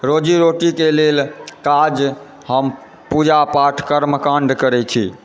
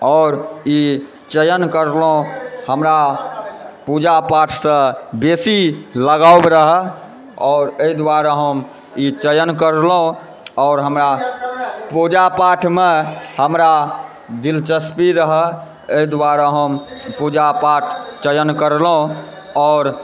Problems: background sounds at intervals, continuous background conversations